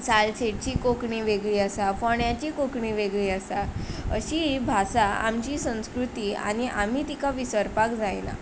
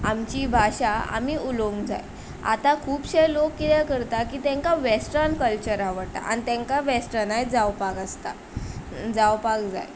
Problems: constant background noise